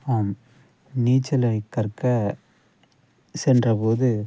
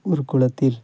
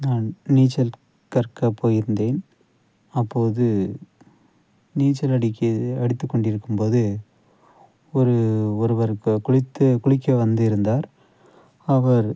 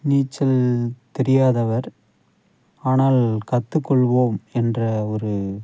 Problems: background sounds at intervals, low volume